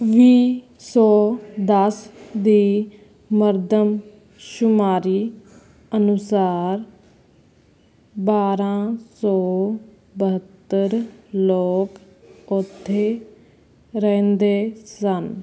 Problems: constant background noise